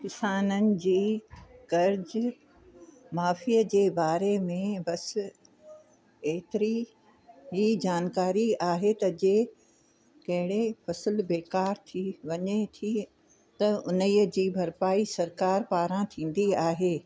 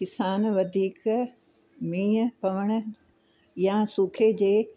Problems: constant background noise